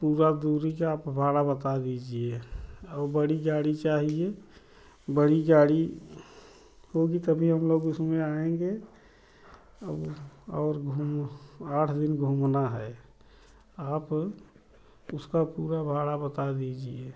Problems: low volume